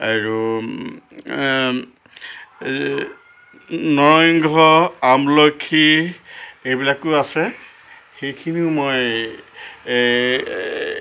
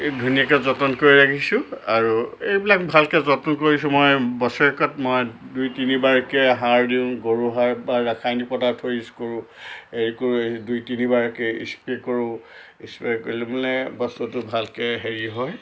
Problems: constant background noise